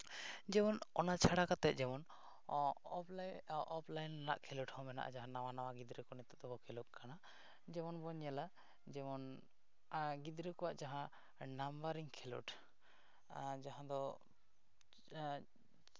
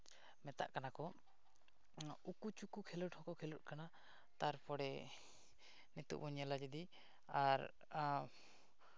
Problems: none marked